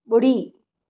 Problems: none marked